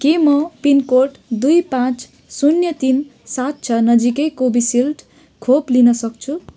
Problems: background sounds at intervals